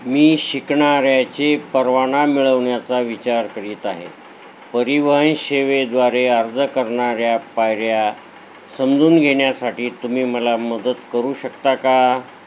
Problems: constant background noise